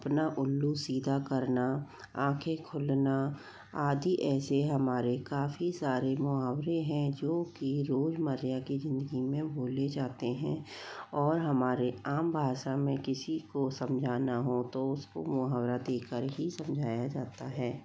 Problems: low volume